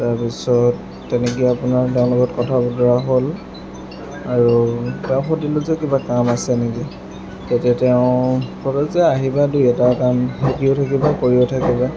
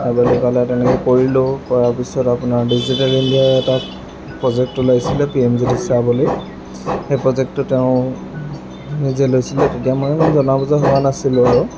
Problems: constant background noise